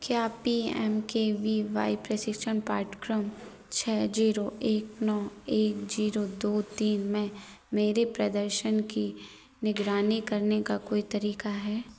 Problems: none marked